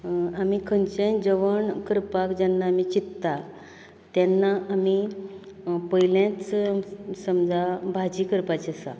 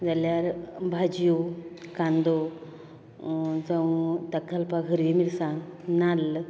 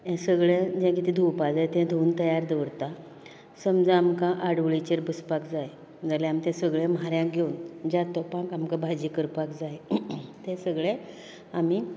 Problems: continuous background conversations